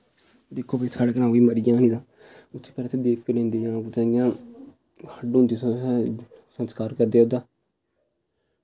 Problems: none marked